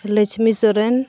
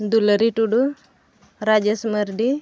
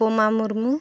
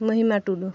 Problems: background sounds at intervals